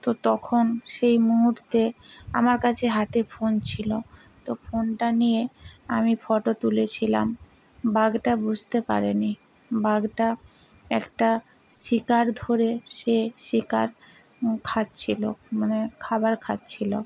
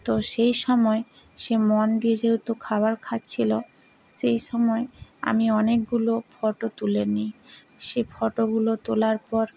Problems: background conversations at intervals